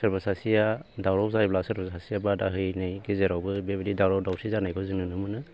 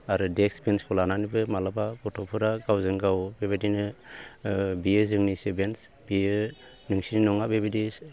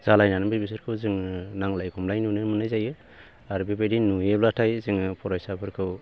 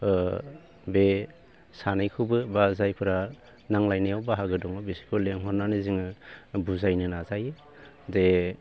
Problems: none marked